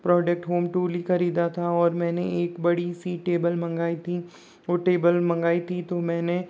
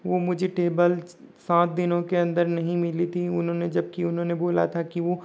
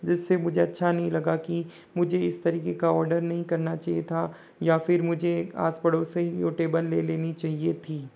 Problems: none marked